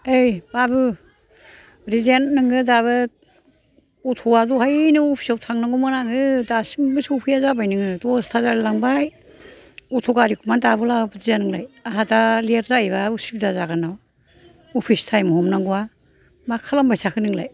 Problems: constant background noise